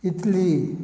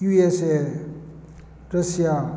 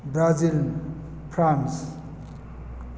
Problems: none marked